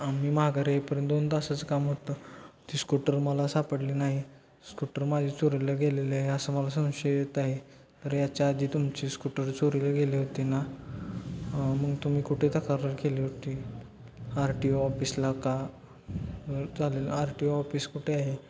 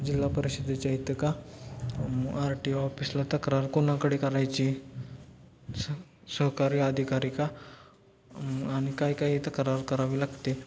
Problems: constant background noise, low volume